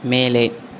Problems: none marked